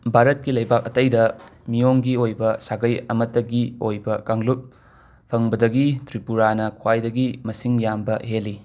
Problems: background sounds at intervals